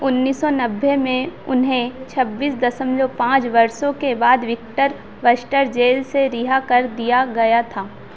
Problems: none marked